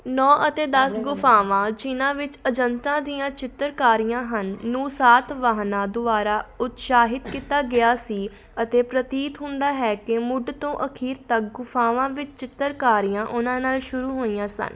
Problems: background sounds at intervals, background conversations at intervals